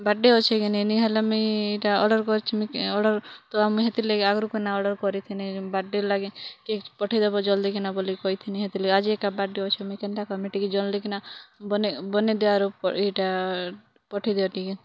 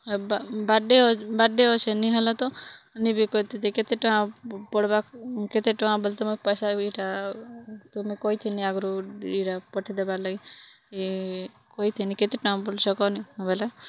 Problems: none marked